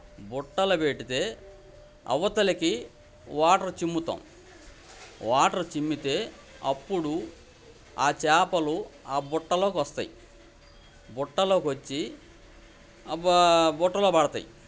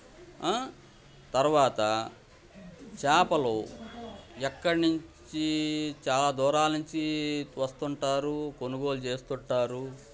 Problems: background sounds at intervals, background conversations at intervals